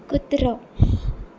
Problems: constant background noise